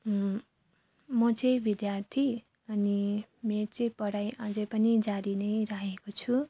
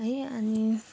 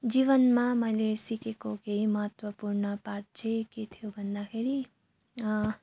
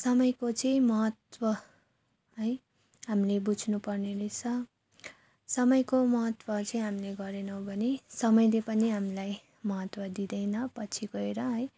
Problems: none marked